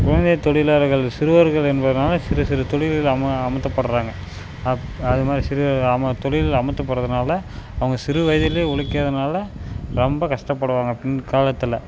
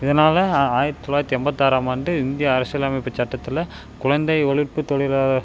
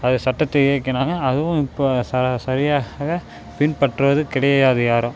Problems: constant background noise